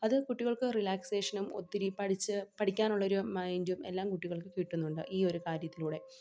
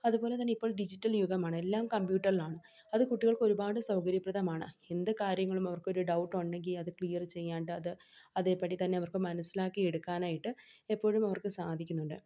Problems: none marked